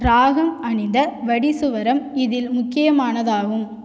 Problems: echo